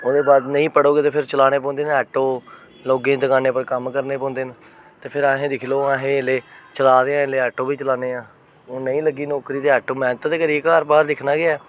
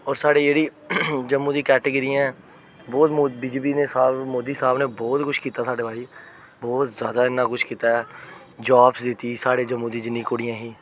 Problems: constant background noise